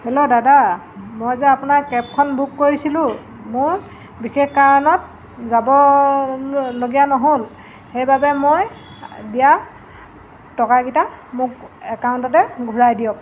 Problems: constant background noise